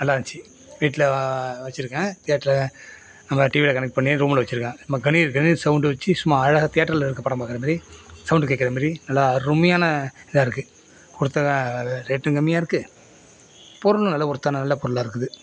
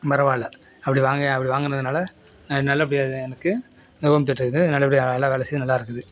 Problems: constant background noise